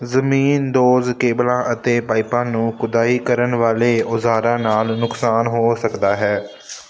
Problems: constant background noise